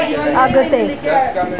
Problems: constant background noise, continuous background conversations